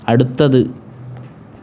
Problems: none marked